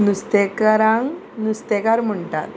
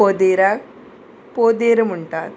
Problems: constant background noise